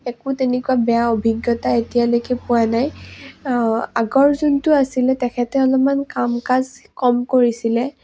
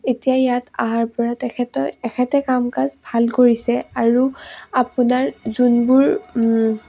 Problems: low volume